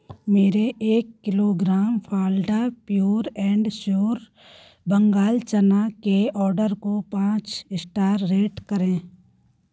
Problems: none marked